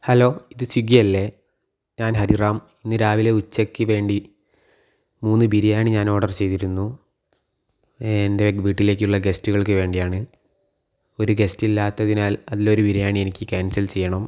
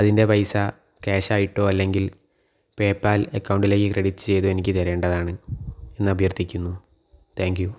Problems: none marked